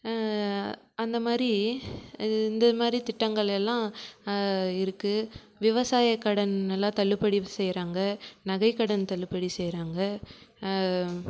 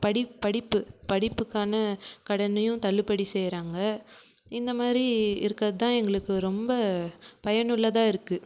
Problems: none marked